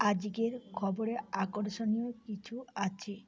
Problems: constant background noise